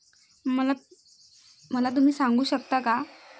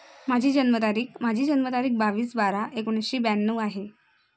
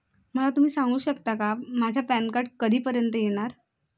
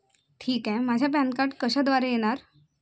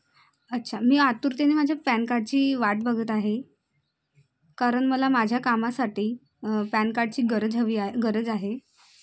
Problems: none marked